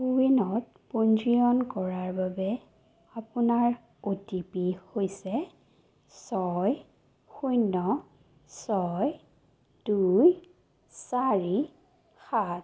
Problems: low volume